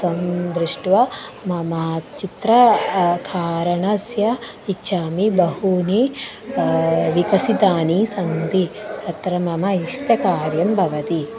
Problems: constant background noise